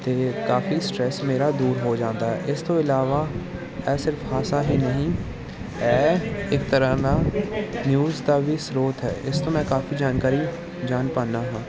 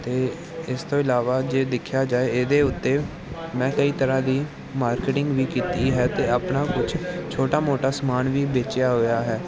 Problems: constant background noise